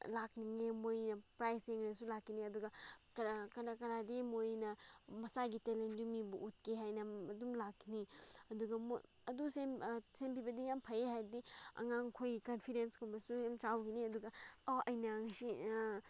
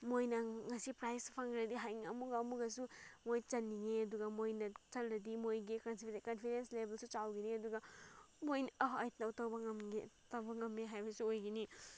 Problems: background sounds at intervals